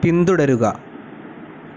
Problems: constant background noise